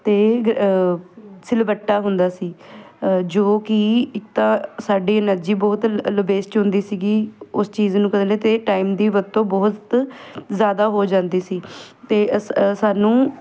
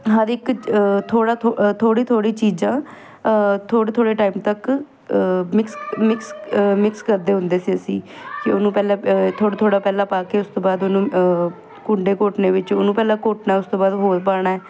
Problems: none marked